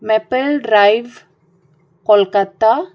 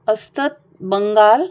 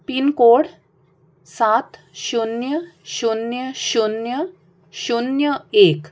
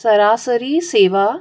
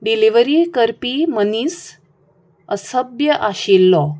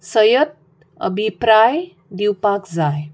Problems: none marked